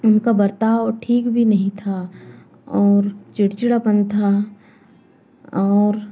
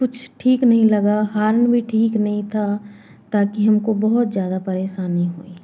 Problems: constant background noise